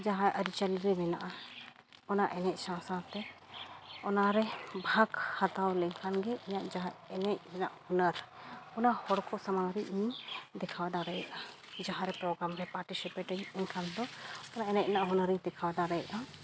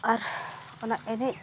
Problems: none marked